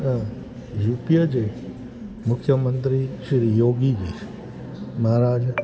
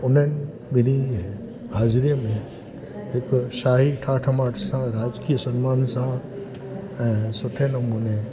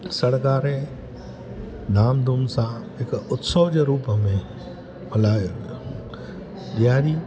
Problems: constant background noise